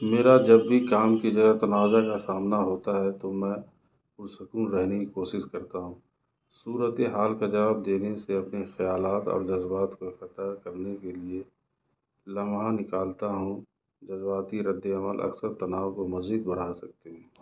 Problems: background sounds at intervals